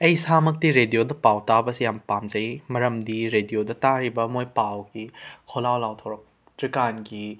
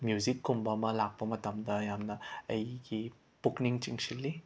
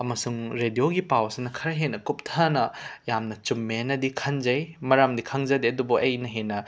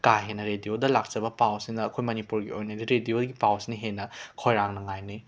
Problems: background sounds at intervals